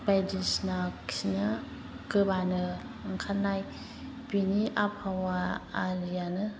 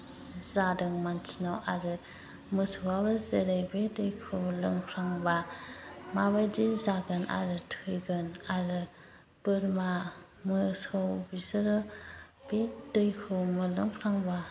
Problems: constant background noise